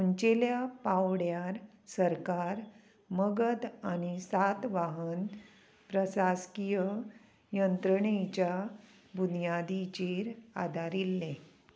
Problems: constant background noise